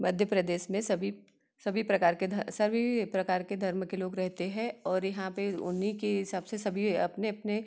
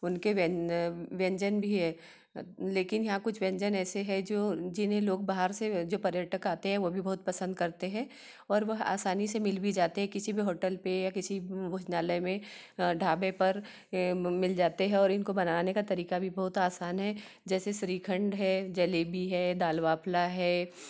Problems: none marked